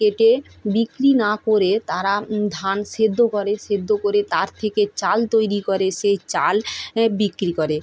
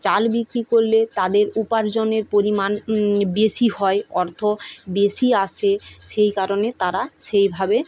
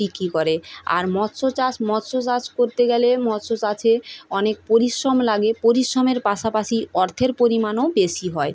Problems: constant background noise